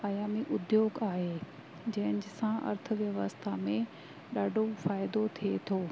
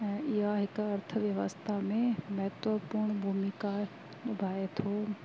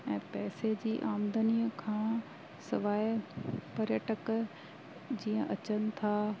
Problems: constant background noise